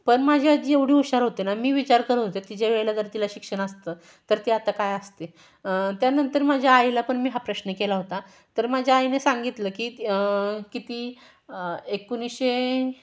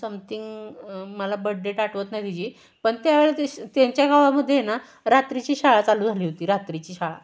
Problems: none marked